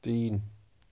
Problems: constant background noise, low volume